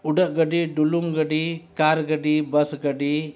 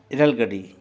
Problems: none marked